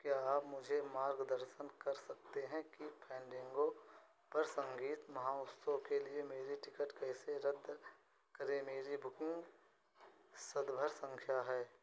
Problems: constant background noise, low volume